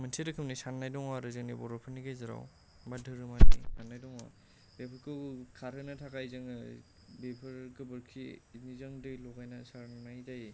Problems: low volume